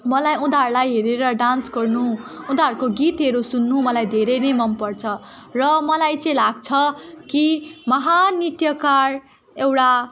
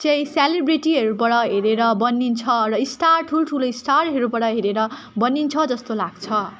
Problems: continuous background conversations